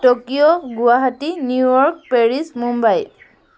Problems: constant background noise